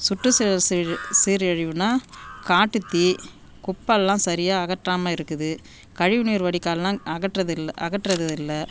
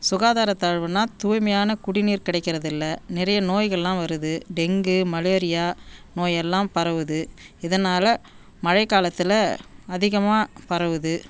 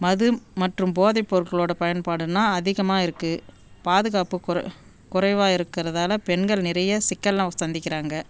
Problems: background sounds at intervals